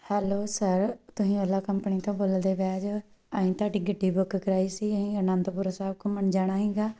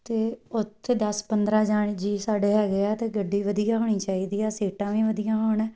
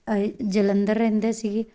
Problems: background sounds at intervals